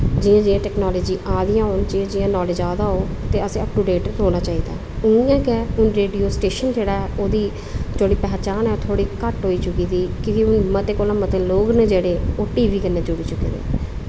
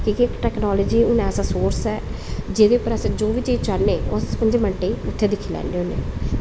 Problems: constant background noise